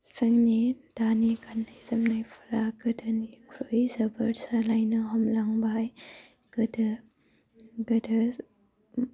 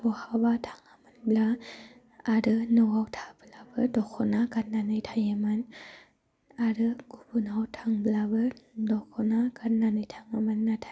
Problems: constant background noise